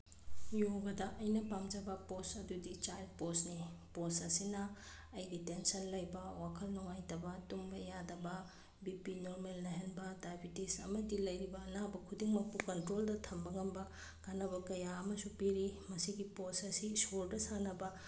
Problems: background sounds at intervals